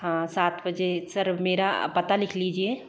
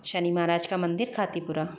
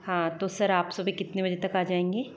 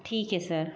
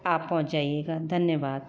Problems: none marked